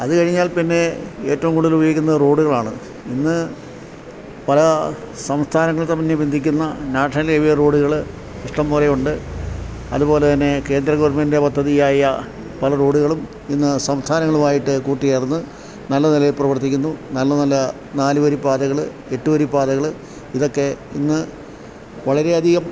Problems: background sounds at intervals